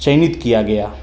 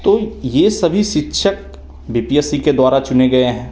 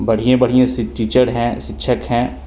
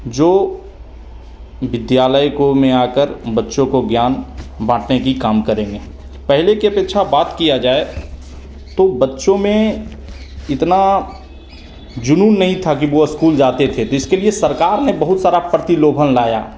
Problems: none marked